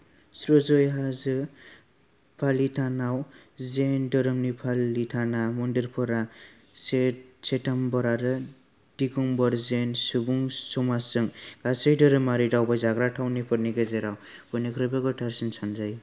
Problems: none marked